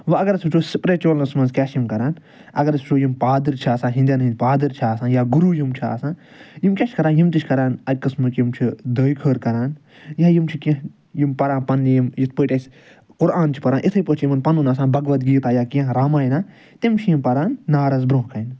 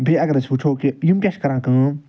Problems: none marked